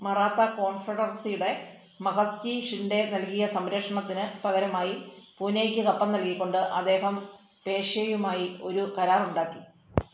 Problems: low volume